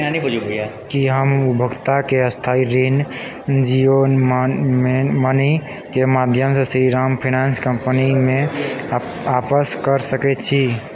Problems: constant background noise, background conversations at intervals